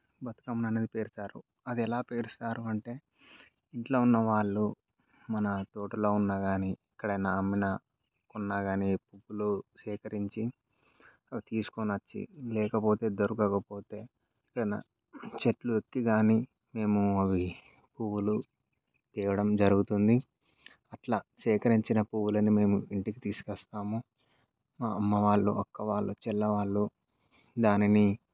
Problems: none marked